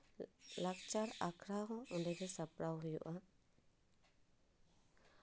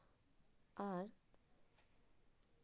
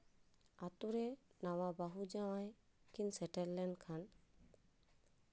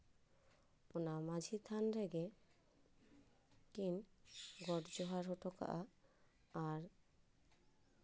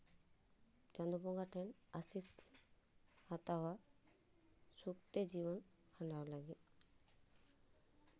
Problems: low volume